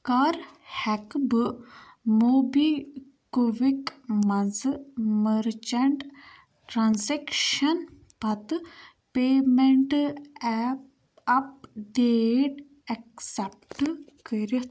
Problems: background sounds at intervals